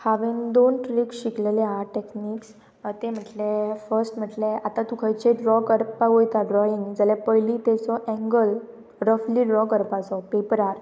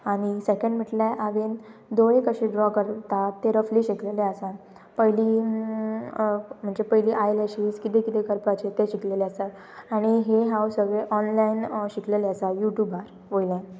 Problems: constant background noise